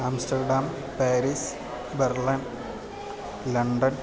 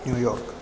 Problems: constant background noise